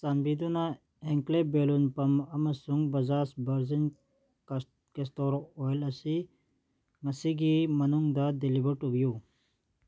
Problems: none marked